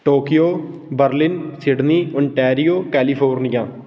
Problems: background sounds at intervals